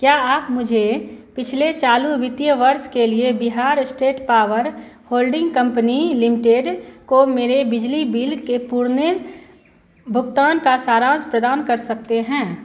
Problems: constant background noise